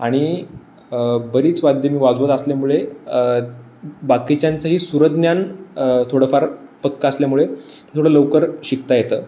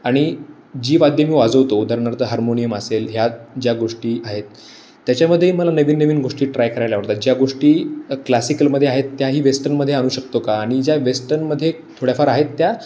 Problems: none marked